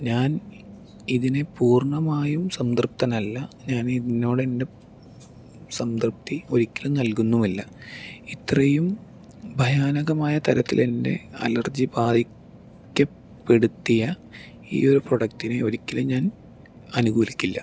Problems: low volume